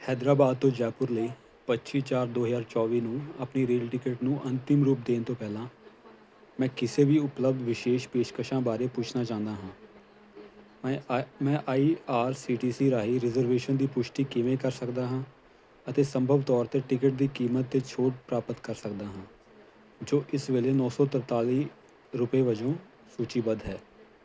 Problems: constant background noise